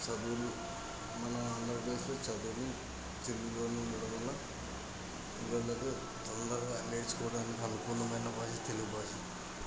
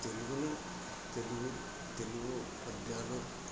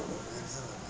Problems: constant background noise, background conversations at intervals, low volume